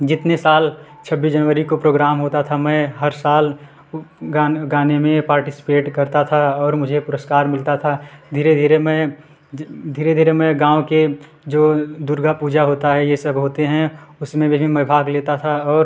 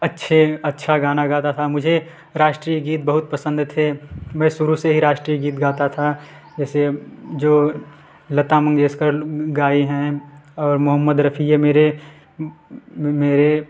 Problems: background sounds at intervals